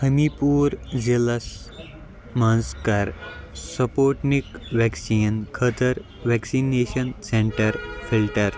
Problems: background sounds at intervals